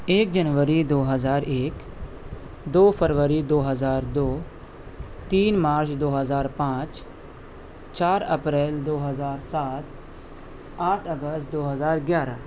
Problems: constant background noise